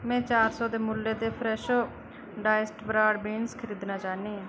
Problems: none marked